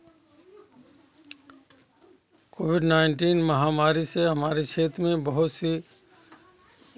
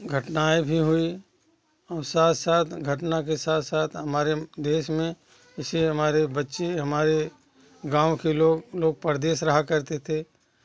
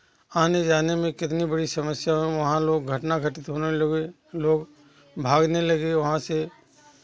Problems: constant background noise, continuous background conversations